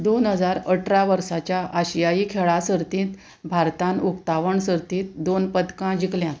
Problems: none marked